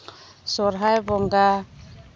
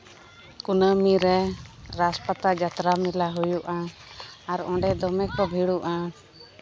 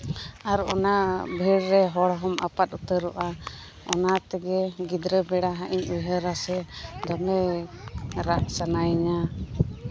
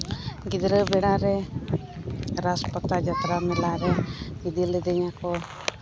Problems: background conversations at intervals